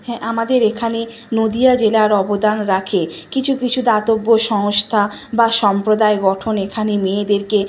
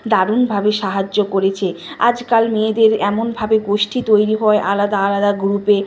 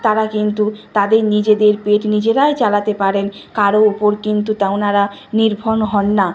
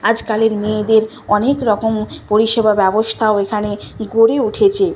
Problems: continuous background conversations